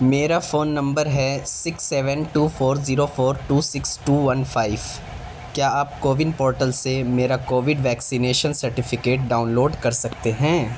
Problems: constant background noise